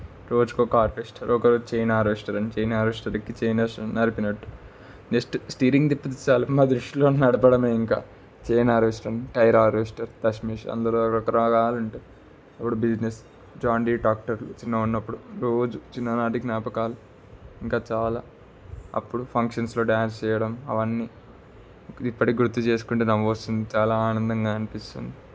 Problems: constant background noise